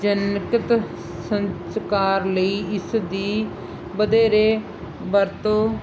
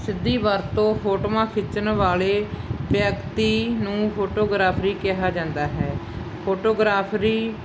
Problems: constant background noise